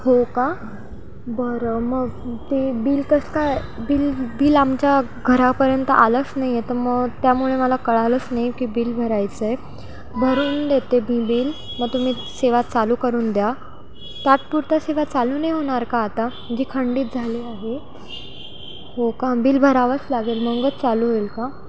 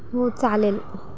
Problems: constant background noise, background conversations at intervals